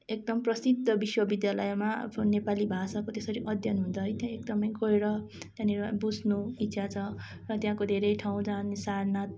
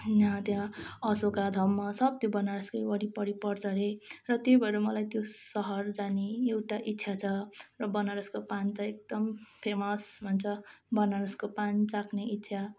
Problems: constant background noise, continuous background conversations